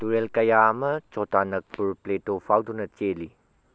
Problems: low volume